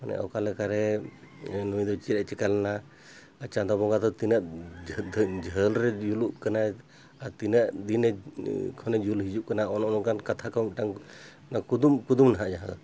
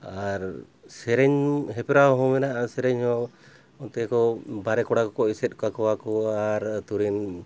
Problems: background sounds at intervals